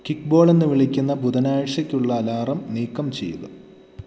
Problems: none marked